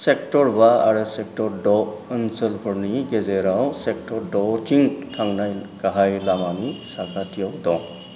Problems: none marked